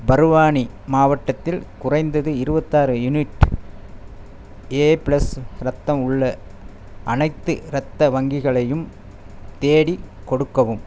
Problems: none marked